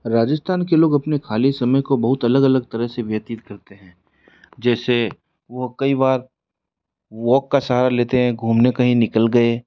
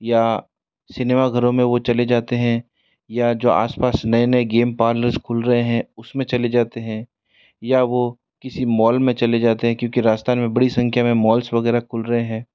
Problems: constant background noise